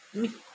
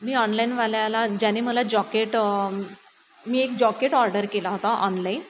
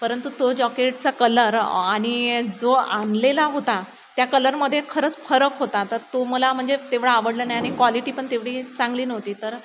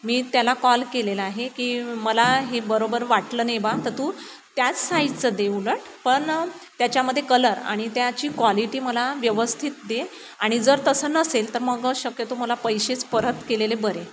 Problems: constant background noise